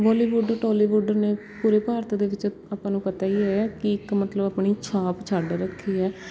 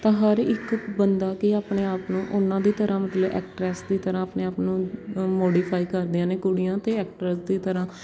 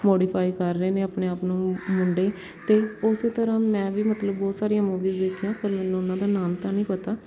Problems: none marked